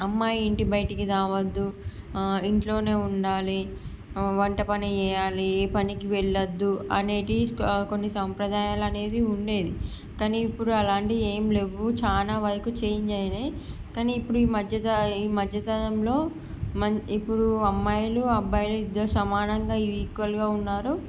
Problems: none marked